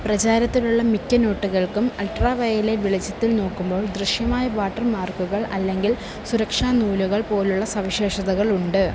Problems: constant background noise